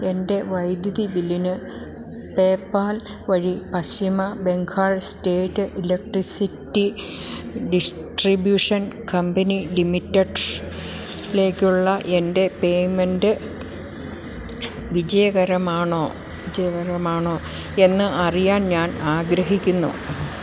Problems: background sounds at intervals